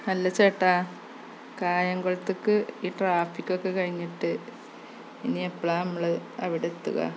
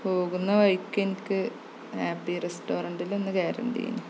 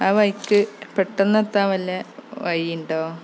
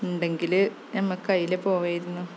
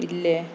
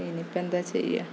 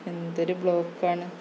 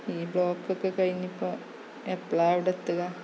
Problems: constant background noise